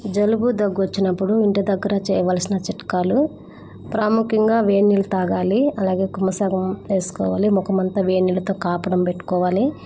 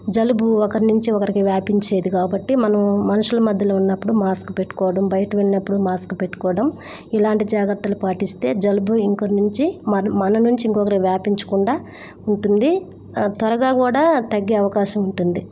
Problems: constant background noise